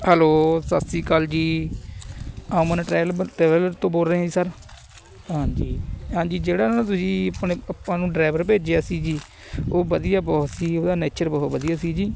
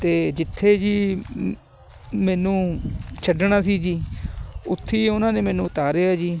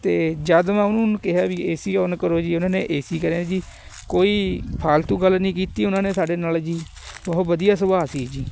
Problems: constant background noise